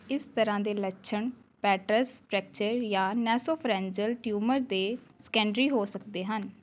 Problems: background sounds at intervals